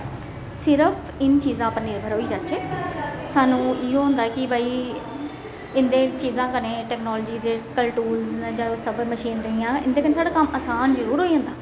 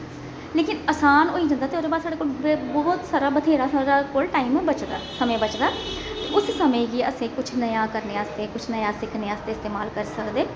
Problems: constant background noise, echo